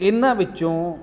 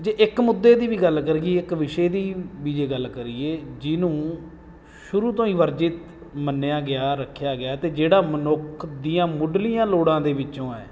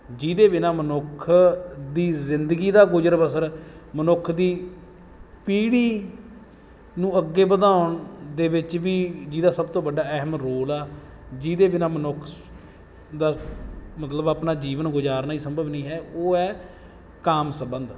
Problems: background sounds at intervals